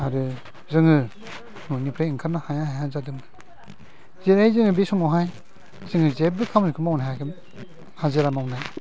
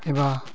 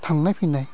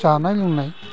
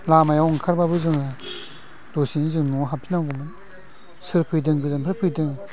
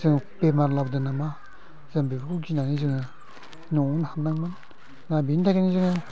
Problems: low volume